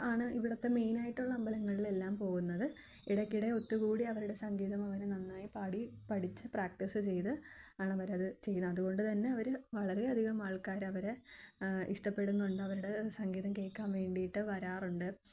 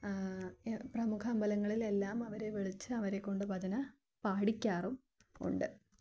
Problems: low volume